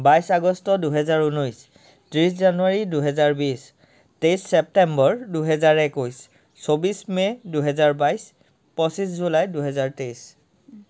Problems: none marked